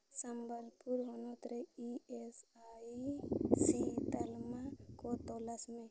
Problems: background sounds at intervals, low volume